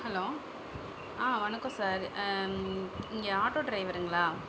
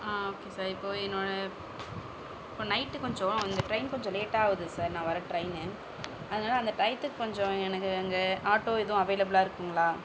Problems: constant background noise